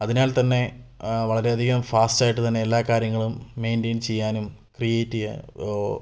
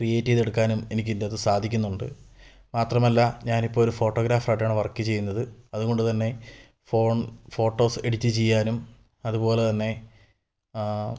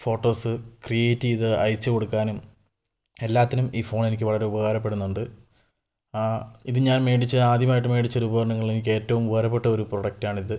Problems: low volume